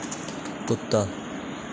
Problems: constant background noise